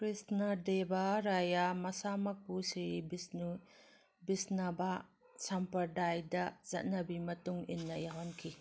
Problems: background sounds at intervals